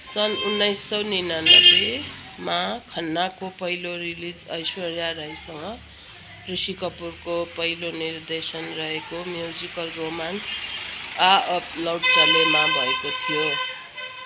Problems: none marked